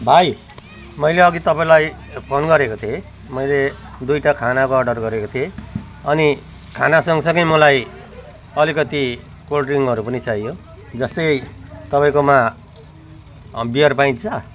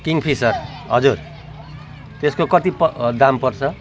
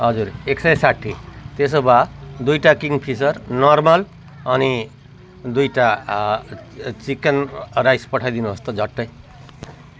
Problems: continuous background conversations